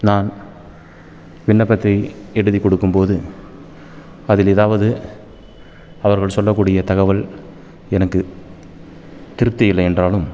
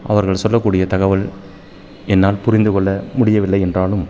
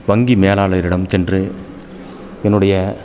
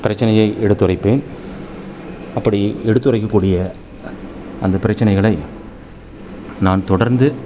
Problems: constant background noise